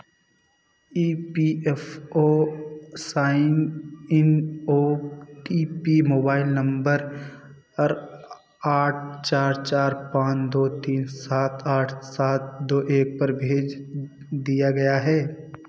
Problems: constant background noise